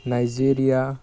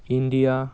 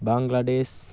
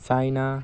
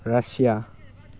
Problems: constant background noise